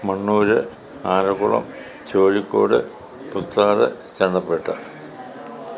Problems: continuous background conversations